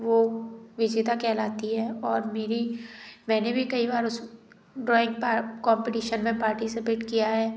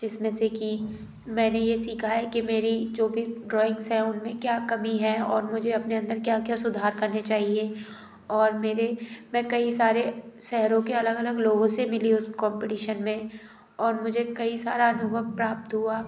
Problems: background sounds at intervals